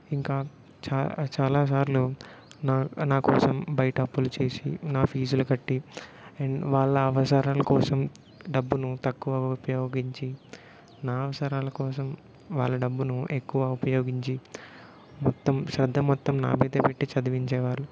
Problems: none marked